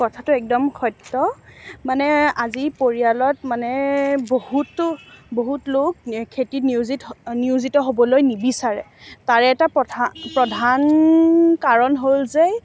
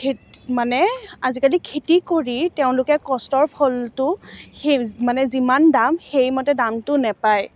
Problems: background sounds at intervals, background conversations at intervals